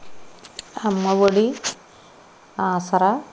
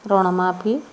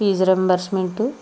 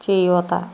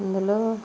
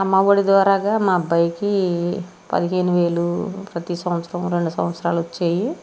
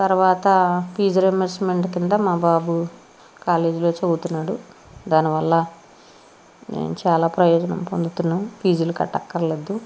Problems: constant background noise